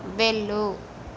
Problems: constant background noise